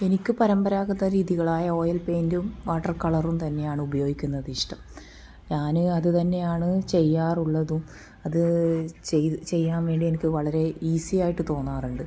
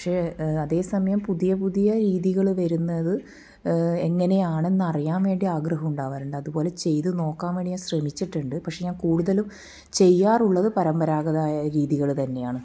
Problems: none marked